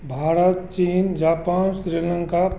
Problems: constant background noise